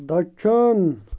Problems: constant background noise